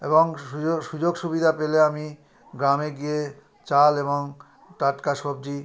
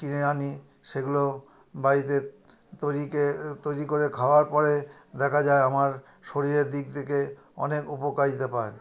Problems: continuous background conversations